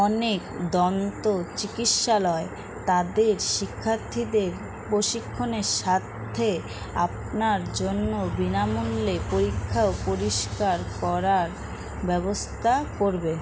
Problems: constant background noise